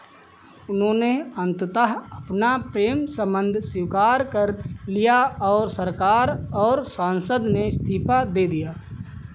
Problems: background sounds at intervals